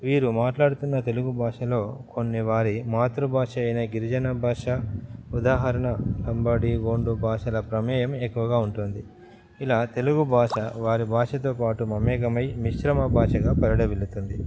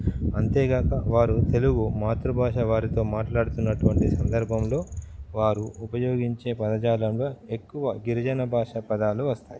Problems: background sounds at intervals